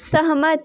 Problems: none marked